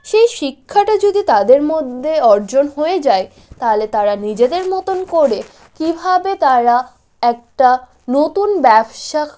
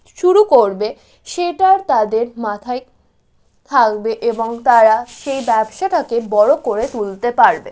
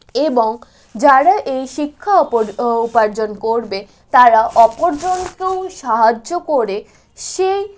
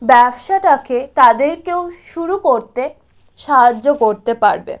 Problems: constant background noise